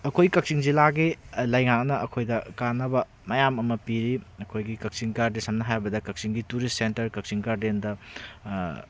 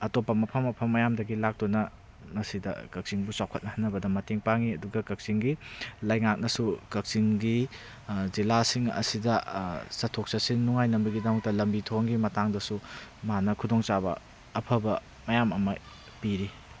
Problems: background sounds at intervals